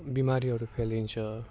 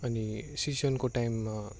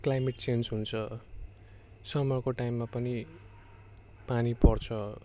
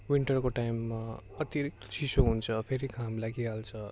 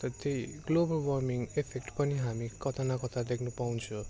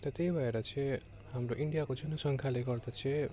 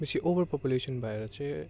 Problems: constant background noise